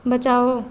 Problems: constant background noise